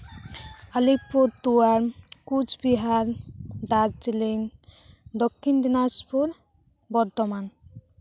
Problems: none marked